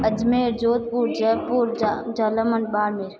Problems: echo